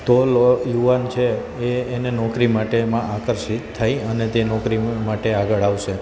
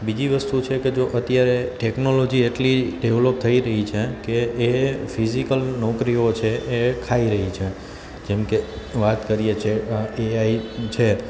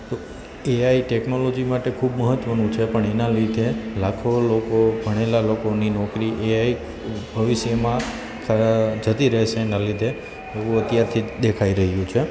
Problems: constant background noise